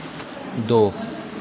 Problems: none marked